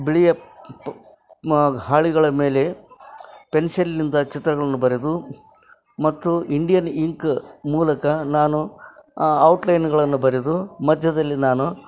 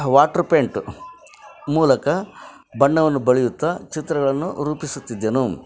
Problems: none marked